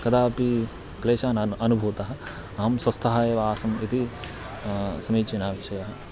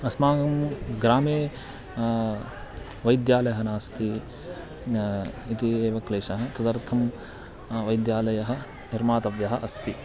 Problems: constant background noise